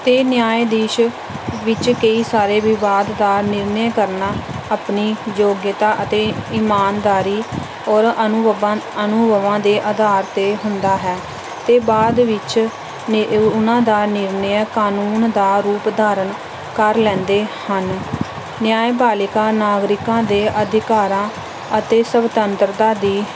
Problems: none marked